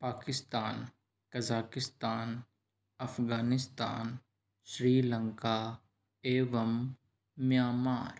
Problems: low volume